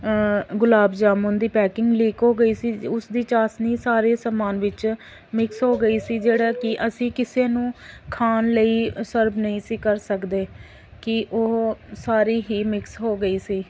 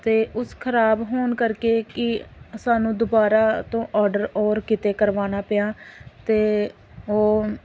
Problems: none marked